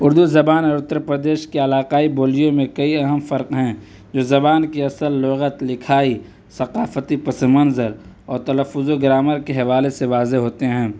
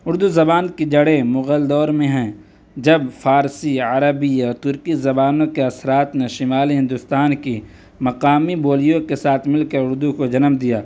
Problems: none marked